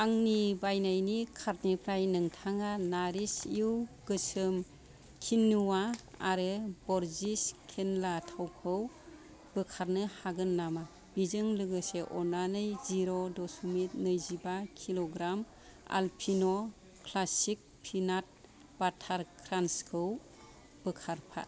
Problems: background sounds at intervals